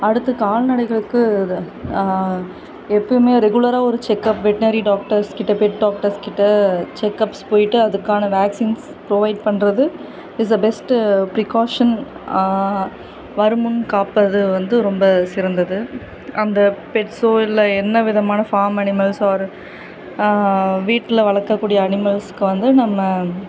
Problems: constant background noise